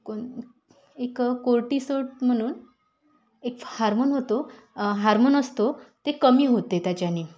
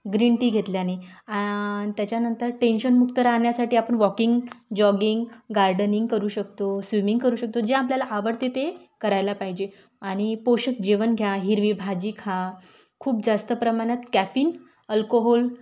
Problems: none marked